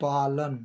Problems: none marked